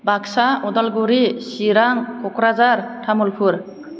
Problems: constant background noise